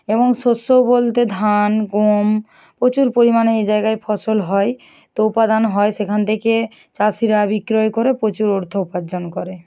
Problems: none marked